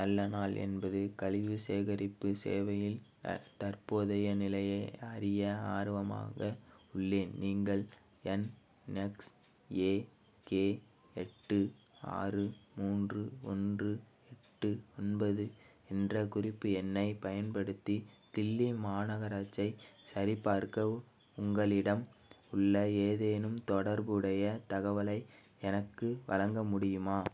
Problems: background sounds at intervals